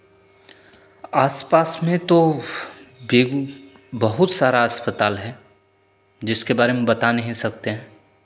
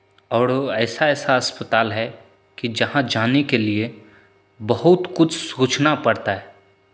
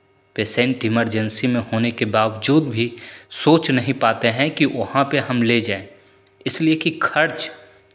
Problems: constant background noise